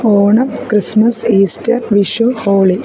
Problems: none marked